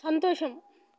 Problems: none marked